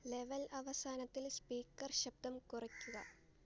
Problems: background sounds at intervals, low volume